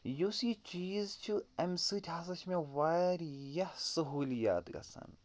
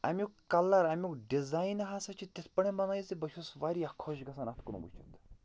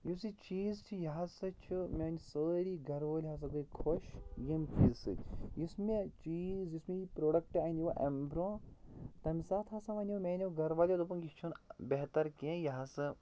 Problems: constant background noise